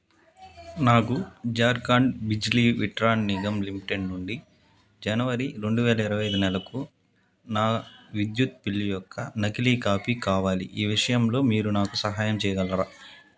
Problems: none marked